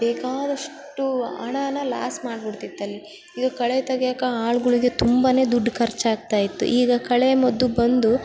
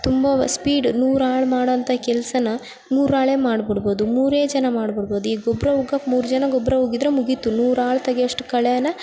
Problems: background sounds at intervals